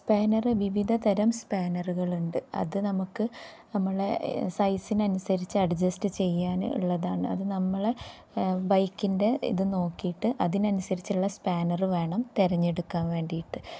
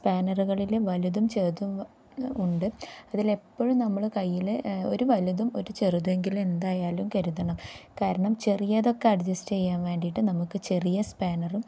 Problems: low volume